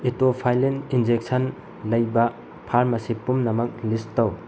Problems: constant background noise